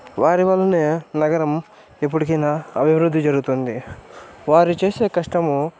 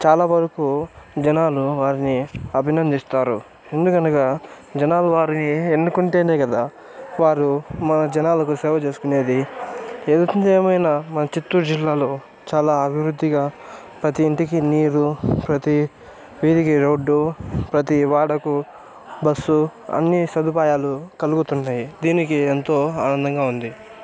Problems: none marked